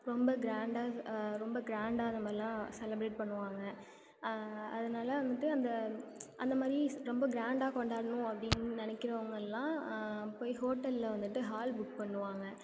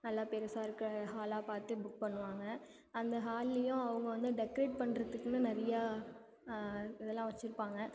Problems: constant background noise